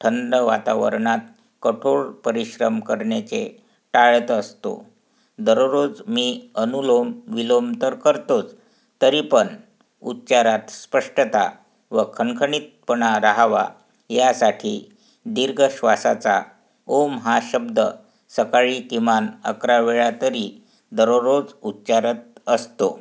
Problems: background sounds at intervals